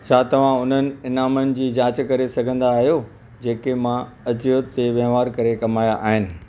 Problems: constant background noise